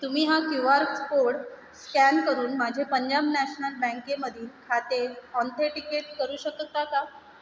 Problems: constant background noise